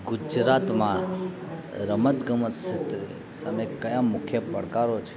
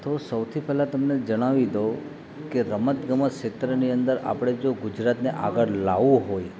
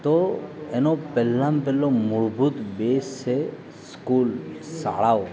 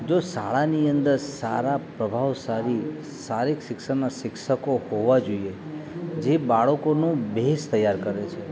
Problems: constant background noise